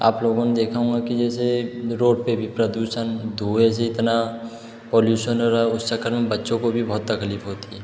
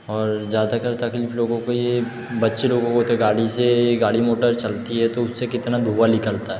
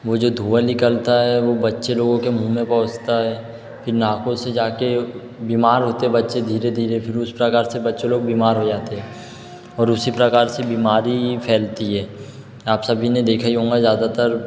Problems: background sounds at intervals